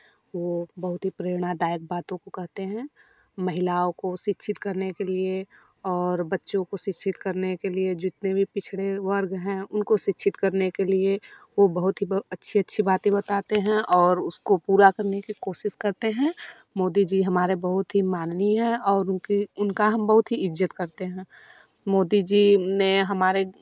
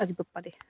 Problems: background sounds at intervals